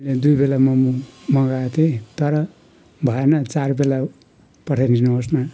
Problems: constant background noise